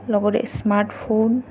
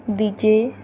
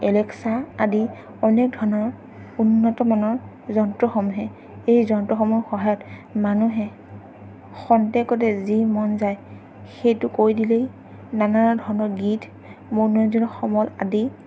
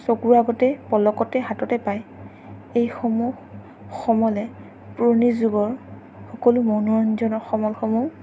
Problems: none marked